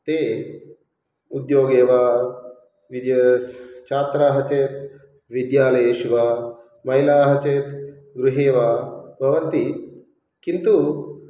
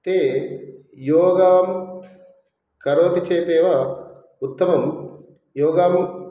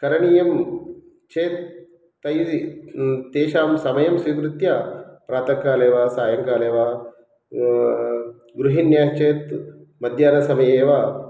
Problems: background sounds at intervals